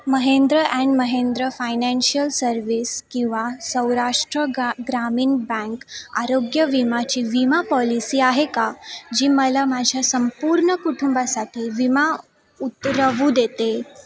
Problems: constant background noise, continuous background conversations